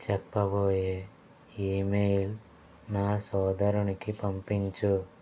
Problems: constant background noise